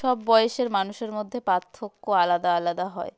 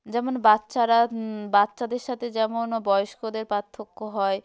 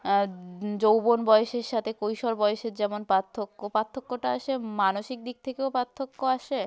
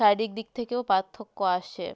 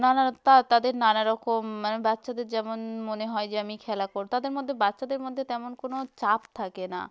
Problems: continuous background conversations